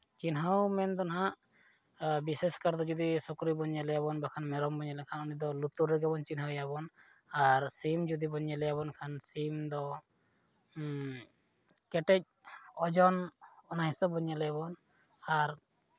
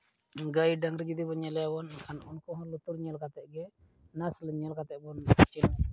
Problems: none marked